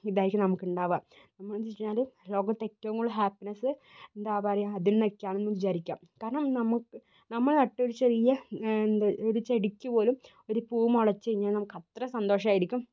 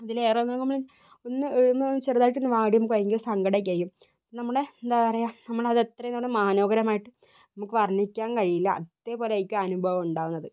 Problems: low volume